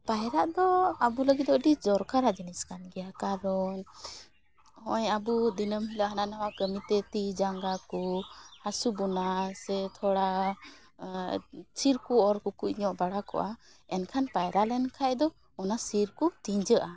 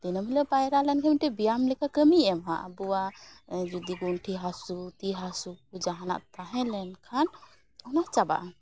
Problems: background sounds at intervals